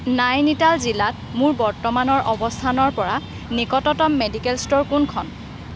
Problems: background conversations at intervals